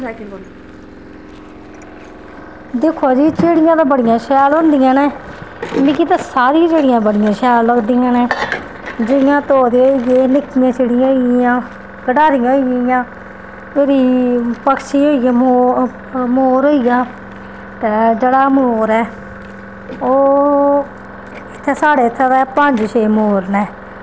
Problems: constant background noise